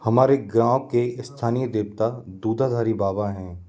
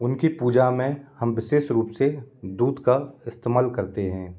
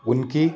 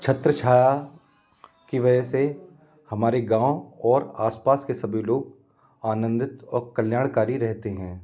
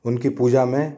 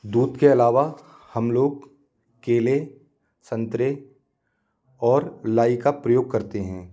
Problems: background conversations at intervals